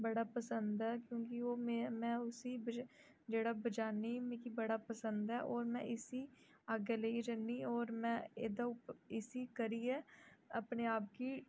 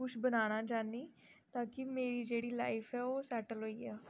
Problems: low volume